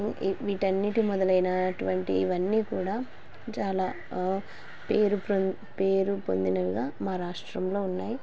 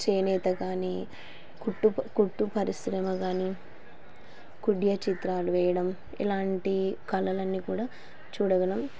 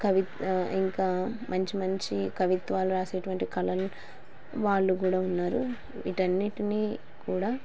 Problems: constant background noise